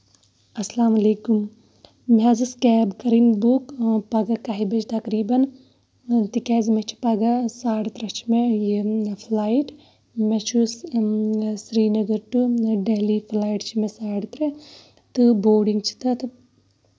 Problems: background sounds at intervals